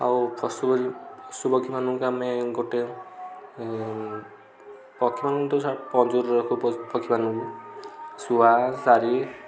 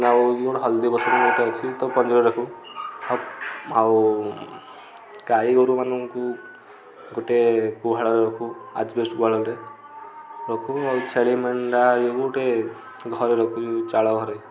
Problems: constant background noise, continuous background conversations